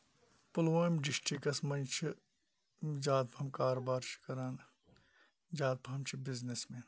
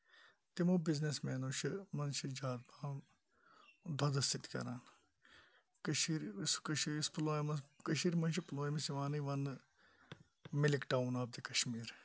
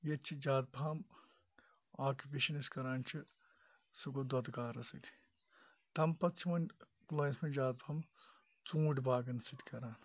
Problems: none marked